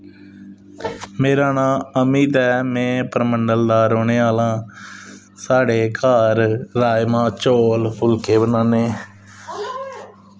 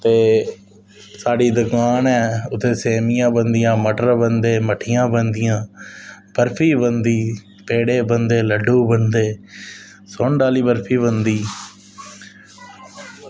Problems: none marked